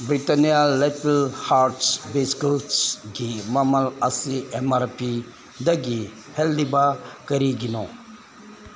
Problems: constant background noise